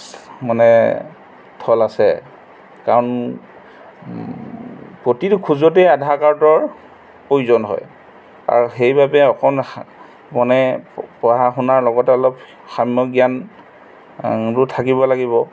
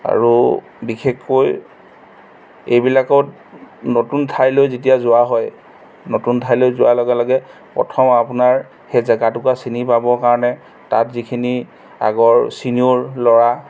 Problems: background sounds at intervals